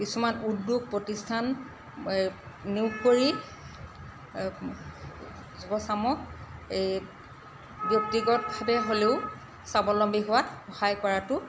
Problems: constant background noise